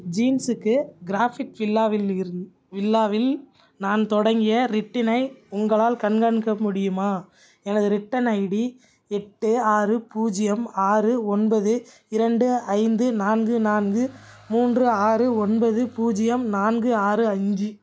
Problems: background sounds at intervals